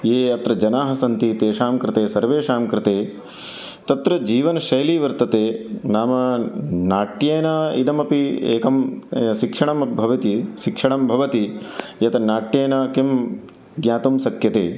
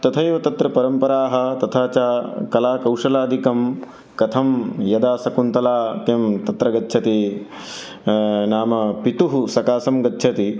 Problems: none marked